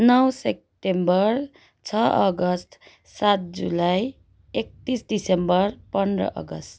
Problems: none marked